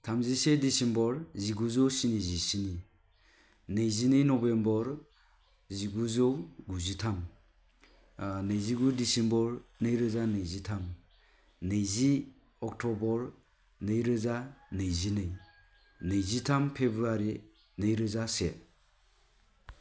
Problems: low volume